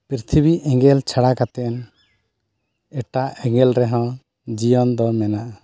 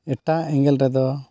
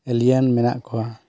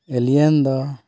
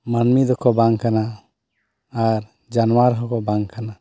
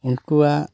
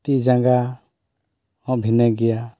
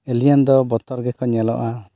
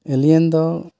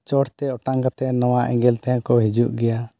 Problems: none marked